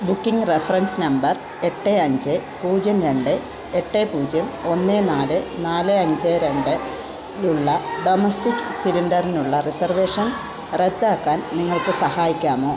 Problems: constant background noise